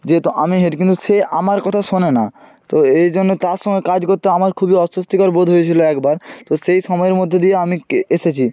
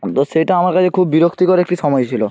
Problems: none marked